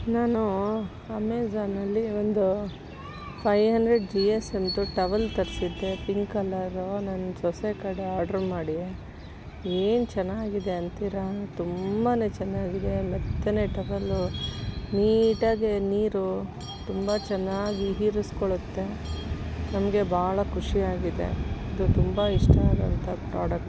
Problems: constant background noise